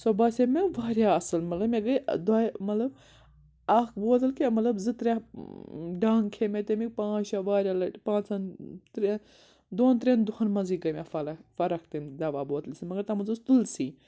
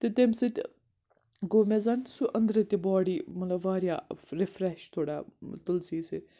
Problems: background sounds at intervals